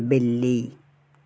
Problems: background sounds at intervals